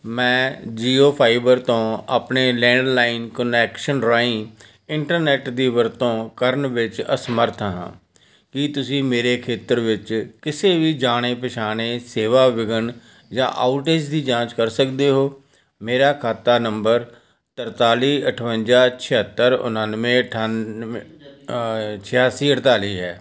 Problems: background conversations at intervals